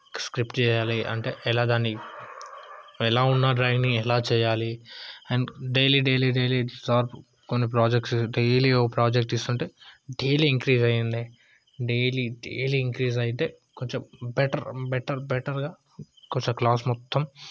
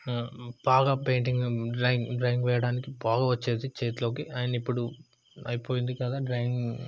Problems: none marked